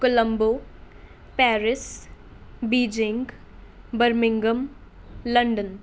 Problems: none marked